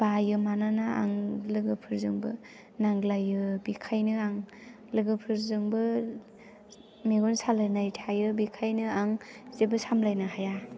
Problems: low volume